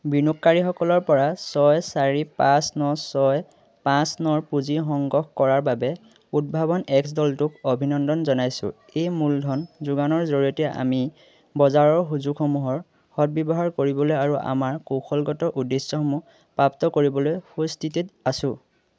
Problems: constant background noise